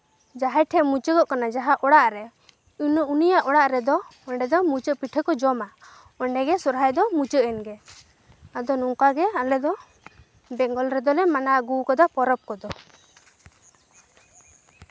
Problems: none marked